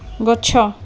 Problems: constant background noise